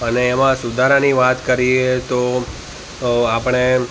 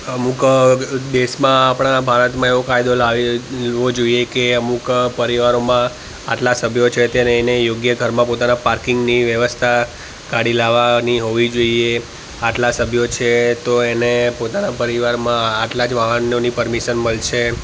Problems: constant background noise